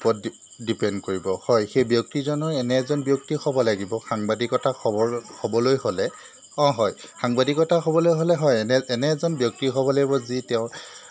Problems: none marked